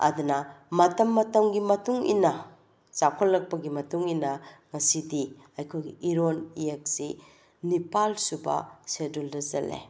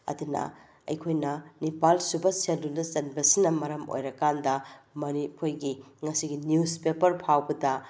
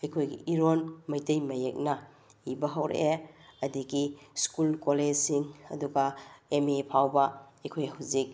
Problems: none marked